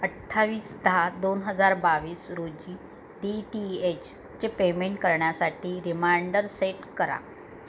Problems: constant background noise